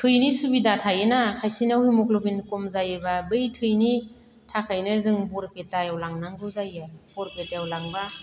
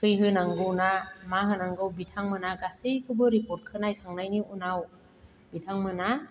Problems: none marked